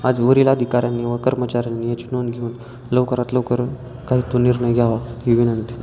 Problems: constant background noise, continuous background conversations